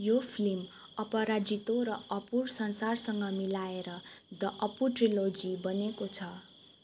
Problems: none marked